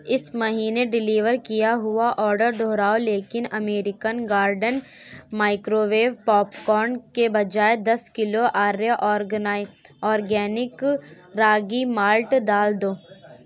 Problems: background sounds at intervals